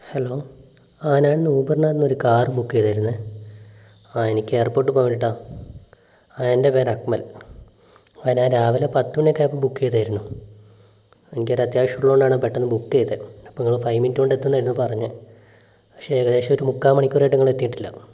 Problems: low volume